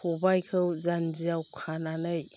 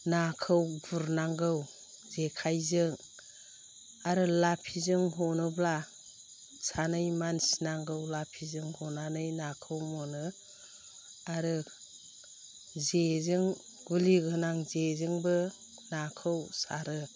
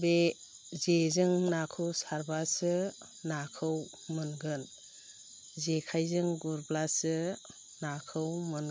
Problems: low volume